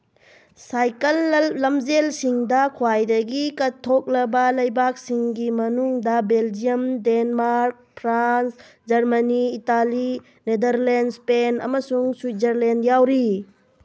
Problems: none marked